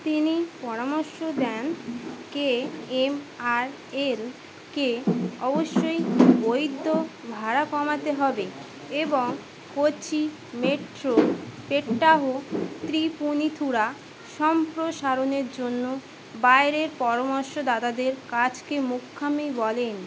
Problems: constant background noise